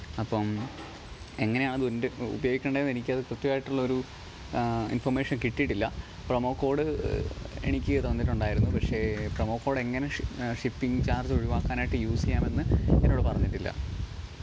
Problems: background sounds at intervals